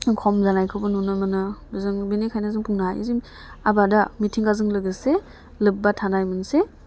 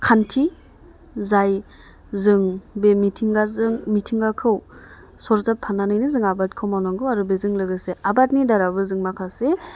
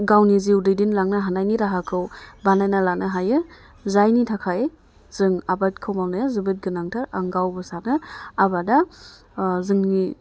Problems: low volume